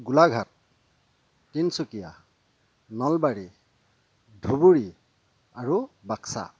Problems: constant background noise, low volume